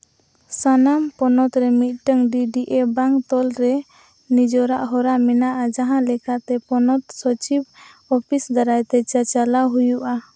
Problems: constant background noise